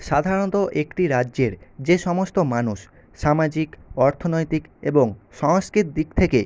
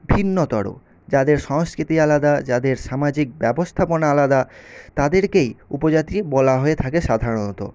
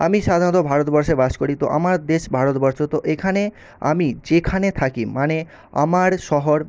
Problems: none marked